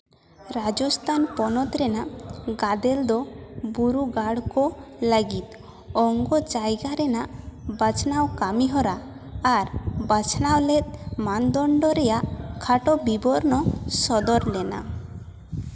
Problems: background sounds at intervals, echo